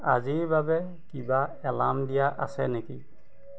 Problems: constant background noise, background conversations at intervals